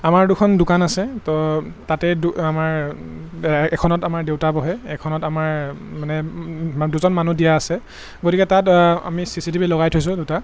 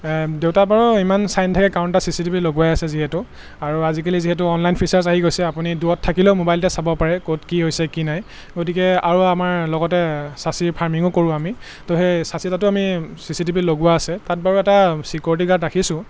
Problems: constant background noise